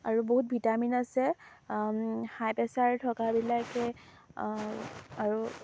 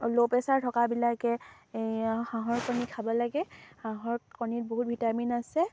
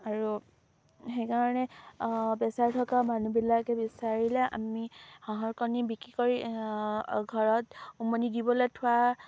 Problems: low volume